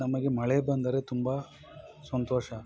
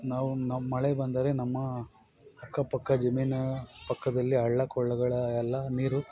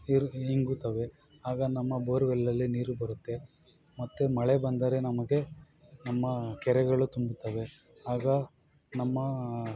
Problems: constant background noise